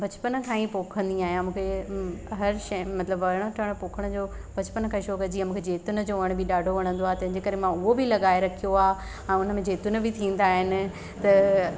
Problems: constant background noise, echo